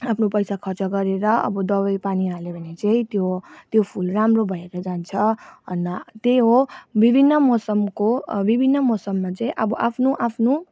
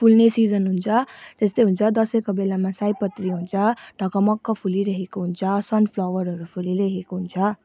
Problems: background sounds at intervals